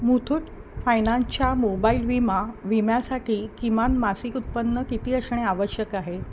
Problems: none marked